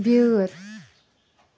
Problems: background sounds at intervals